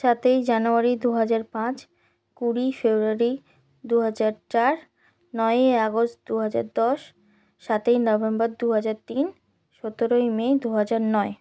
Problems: none marked